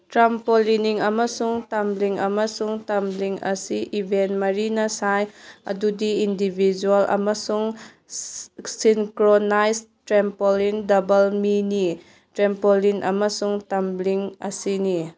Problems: background sounds at intervals